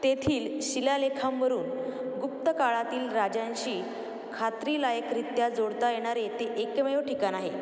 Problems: none marked